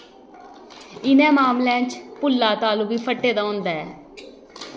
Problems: background sounds at intervals